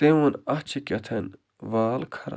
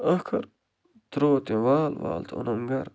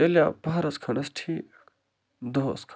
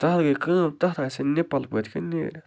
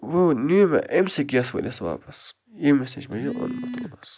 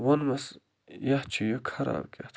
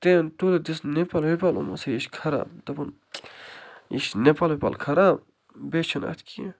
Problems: low volume